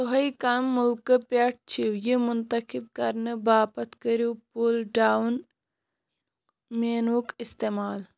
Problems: none marked